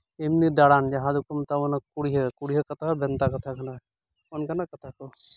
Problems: background sounds at intervals